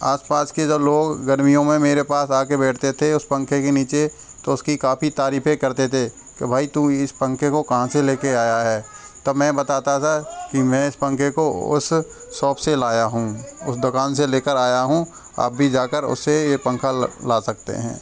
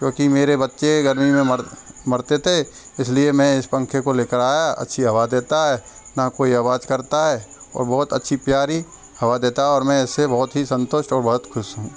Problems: background sounds at intervals